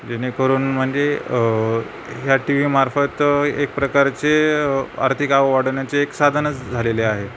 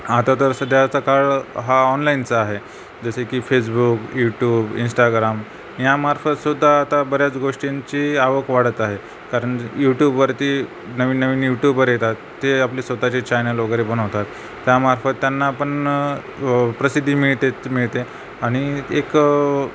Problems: none marked